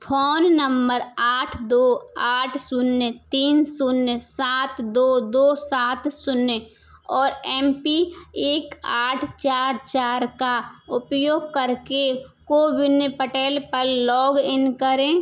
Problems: background sounds at intervals